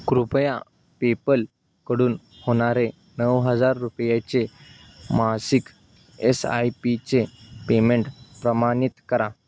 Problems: background sounds at intervals